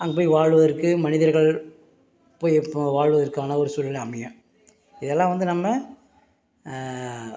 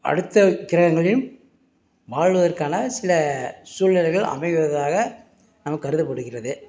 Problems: background sounds at intervals